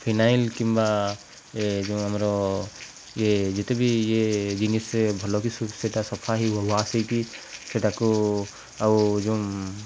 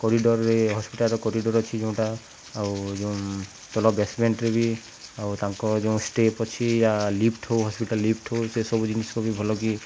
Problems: none marked